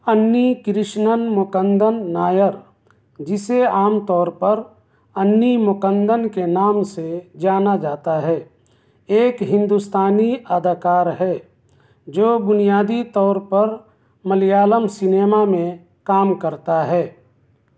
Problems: none marked